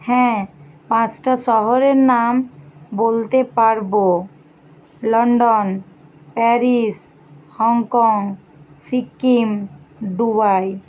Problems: constant background noise